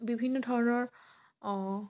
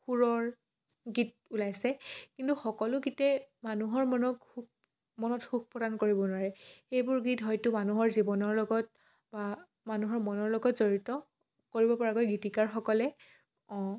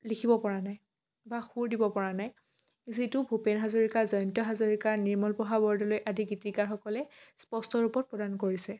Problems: none marked